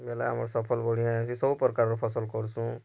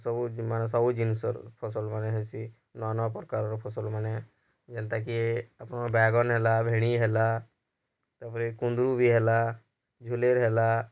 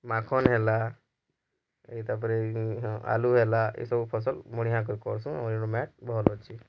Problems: low volume